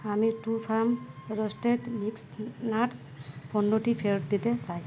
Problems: background sounds at intervals